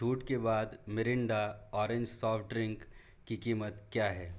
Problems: none marked